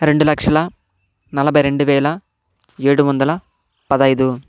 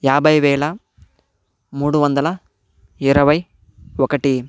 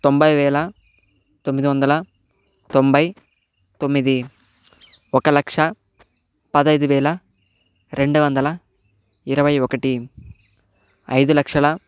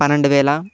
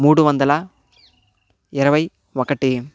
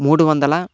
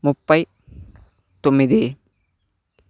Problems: background sounds at intervals